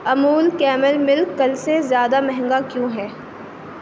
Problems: none marked